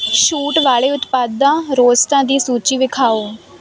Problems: background sounds at intervals